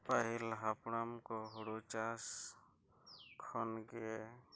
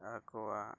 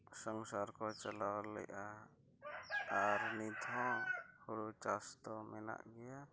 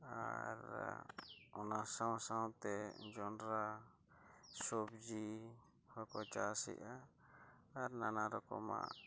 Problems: low volume